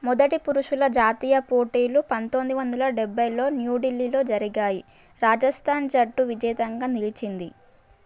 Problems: none marked